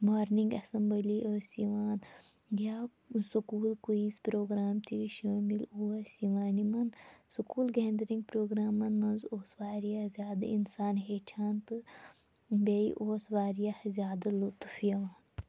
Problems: none marked